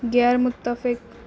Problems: none marked